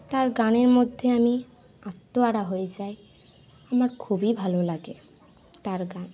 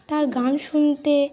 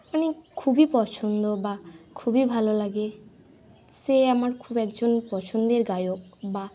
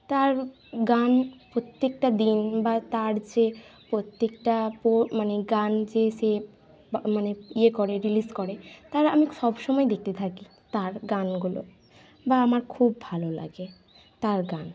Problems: none marked